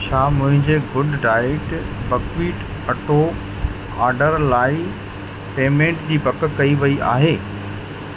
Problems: constant background noise, echo